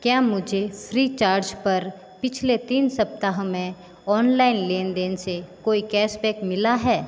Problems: constant background noise, background conversations at intervals